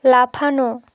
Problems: none marked